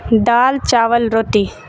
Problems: background sounds at intervals